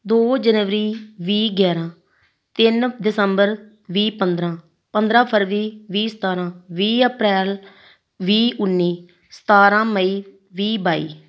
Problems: none marked